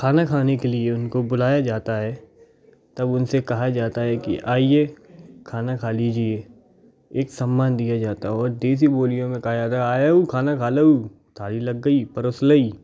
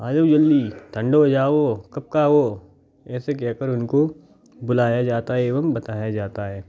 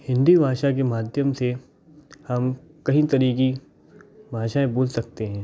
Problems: background sounds at intervals, background conversations at intervals